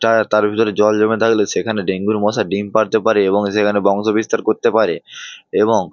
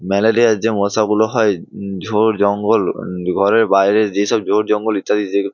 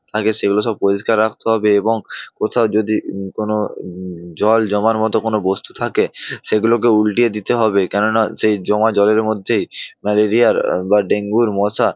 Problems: background sounds at intervals